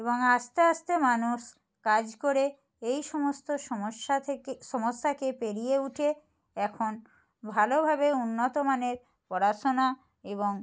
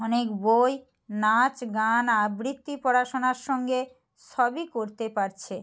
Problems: none marked